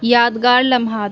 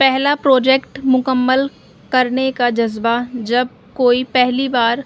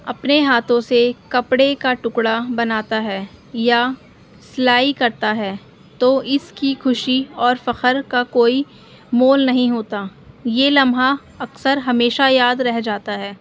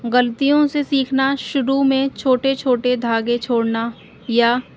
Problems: constant background noise